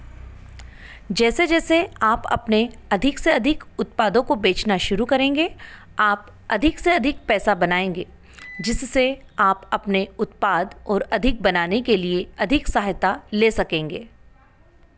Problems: constant background noise